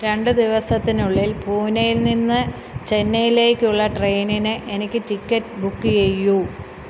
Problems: constant background noise